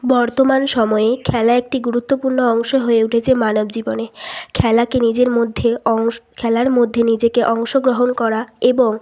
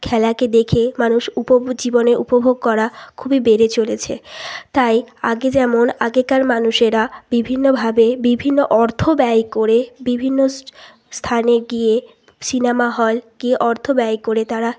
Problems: constant background noise, continuous background conversations